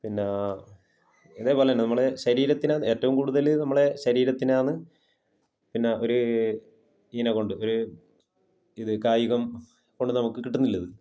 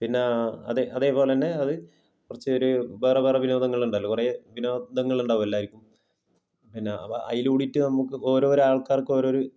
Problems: low volume